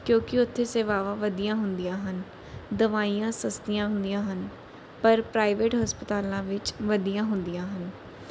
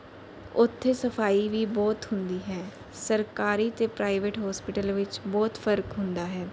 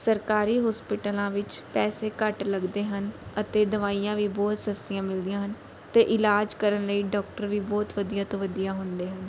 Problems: none marked